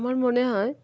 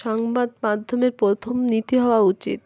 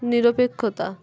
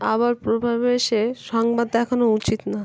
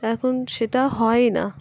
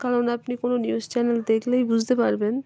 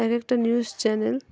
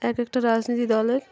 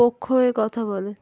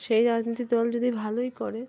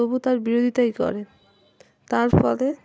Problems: constant background noise, continuous background conversations